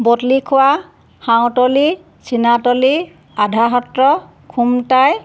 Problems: background sounds at intervals